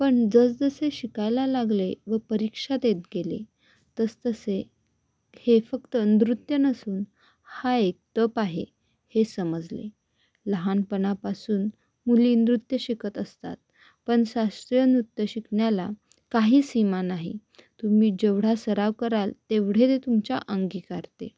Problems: background sounds at intervals